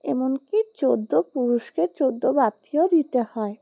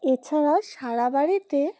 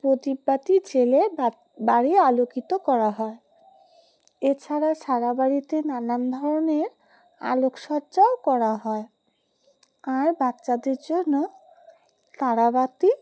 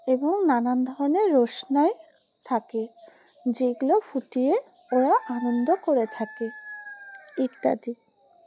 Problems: constant background noise